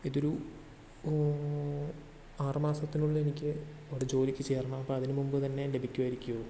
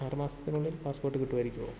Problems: constant background noise, low volume